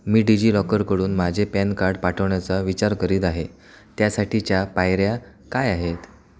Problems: constant background noise, background conversations at intervals